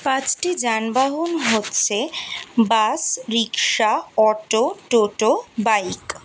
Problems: constant background noise